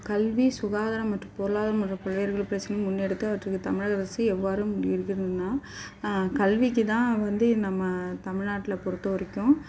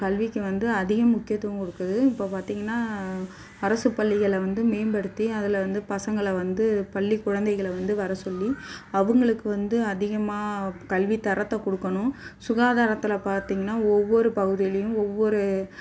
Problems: background sounds at intervals